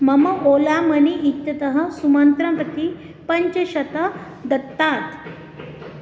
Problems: background sounds at intervals